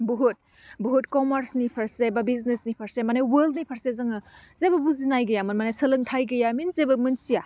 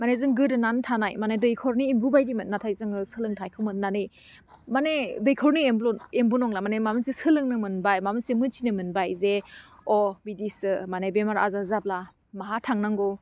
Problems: constant background noise